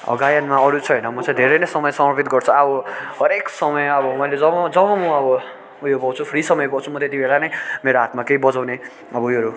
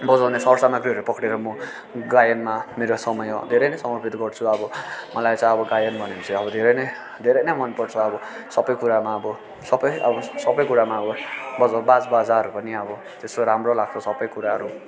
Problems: constant background noise